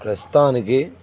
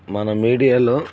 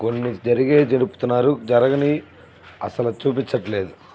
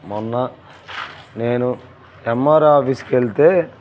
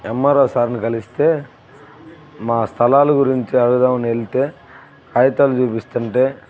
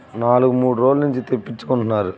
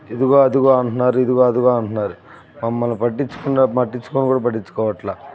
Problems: constant background noise, background conversations at intervals